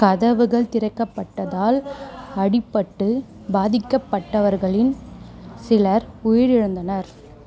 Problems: background sounds at intervals